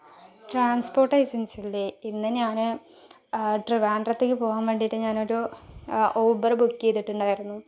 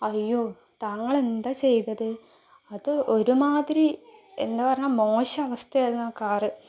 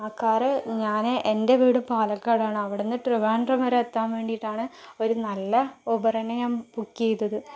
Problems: low volume